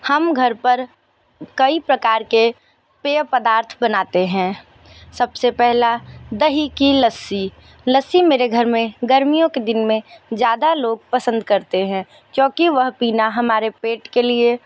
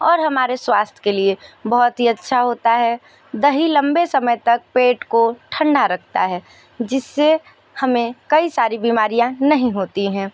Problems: none marked